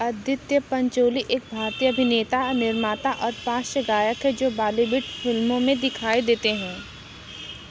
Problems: none marked